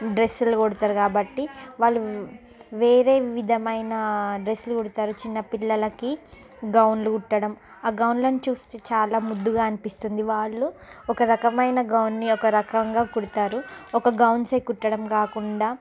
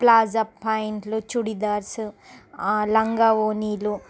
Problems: background sounds at intervals, background conversations at intervals